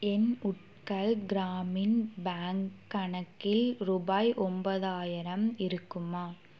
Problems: none marked